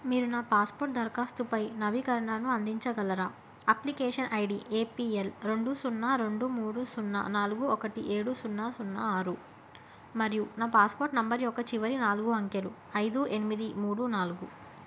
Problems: constant background noise